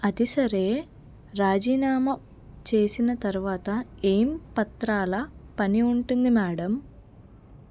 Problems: none marked